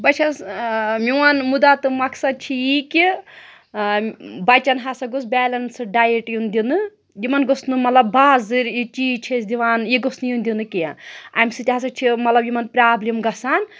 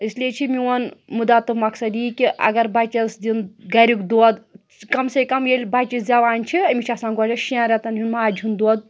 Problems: none marked